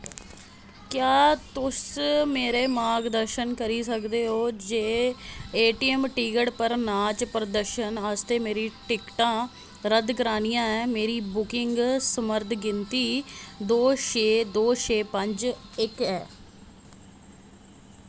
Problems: constant background noise